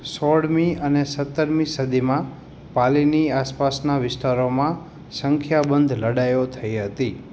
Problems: constant background noise